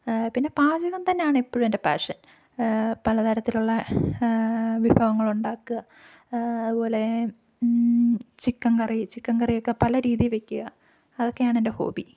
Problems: none marked